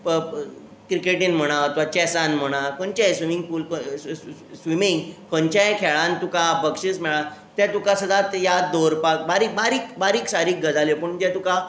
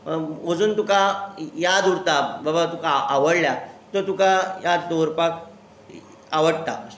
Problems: constant background noise